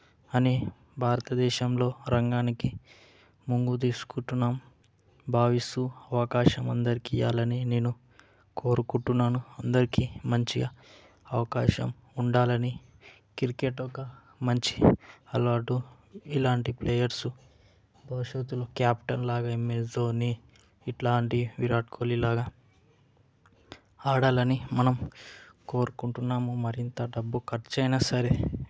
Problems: background conversations at intervals